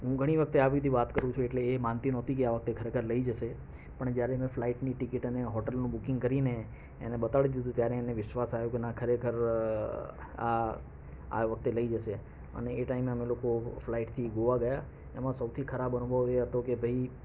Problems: none marked